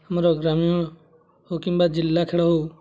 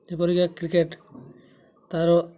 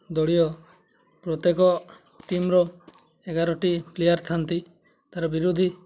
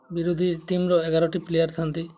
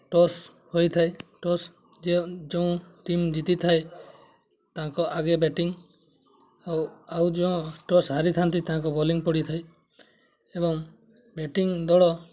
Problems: constant background noise, continuous background conversations